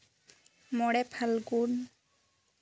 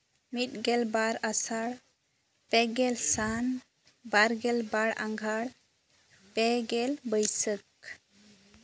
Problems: background sounds at intervals